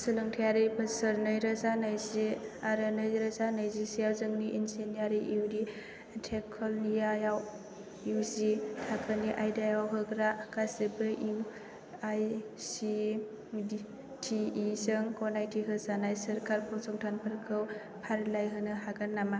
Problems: none marked